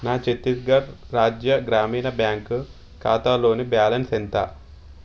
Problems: constant background noise